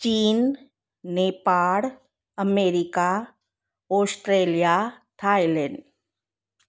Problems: none marked